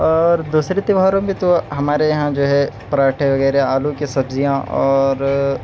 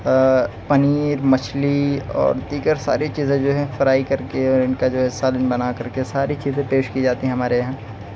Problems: none marked